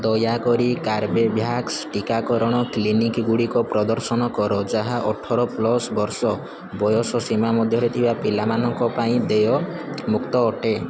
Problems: constant background noise